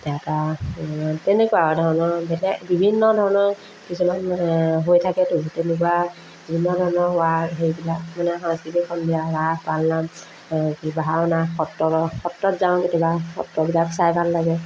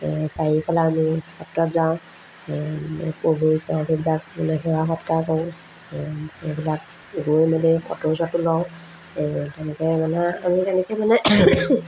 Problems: constant background noise, background conversations at intervals